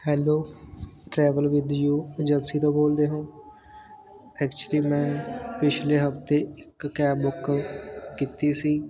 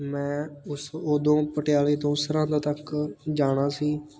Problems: constant background noise, background conversations at intervals